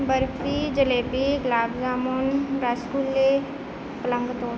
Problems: none marked